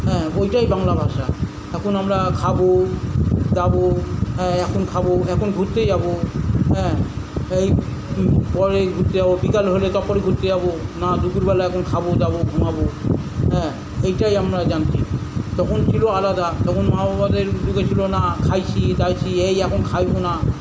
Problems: none marked